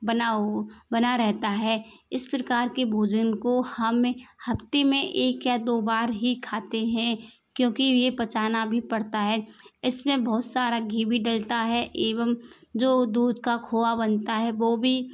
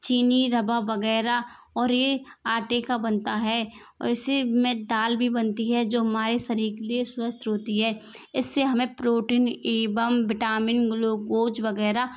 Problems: constant background noise